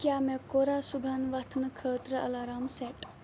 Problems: none marked